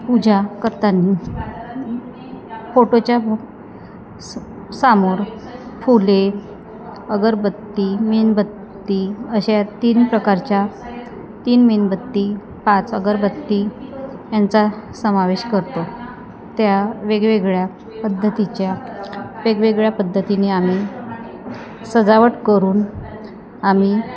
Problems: constant background noise, continuous background conversations